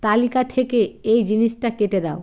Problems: constant background noise